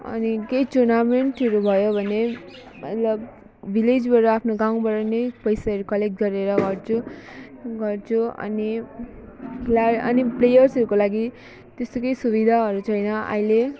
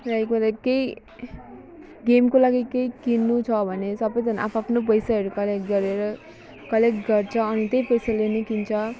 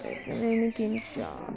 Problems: background sounds at intervals